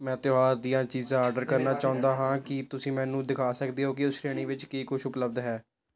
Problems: constant background noise